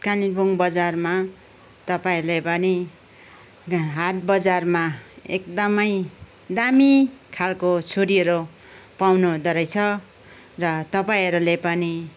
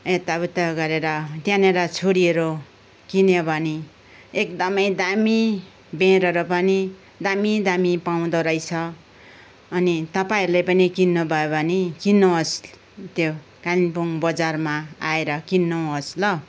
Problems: background sounds at intervals